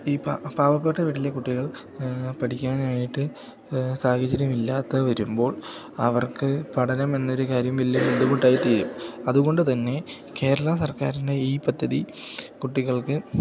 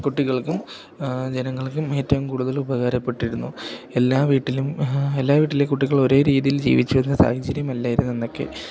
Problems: none marked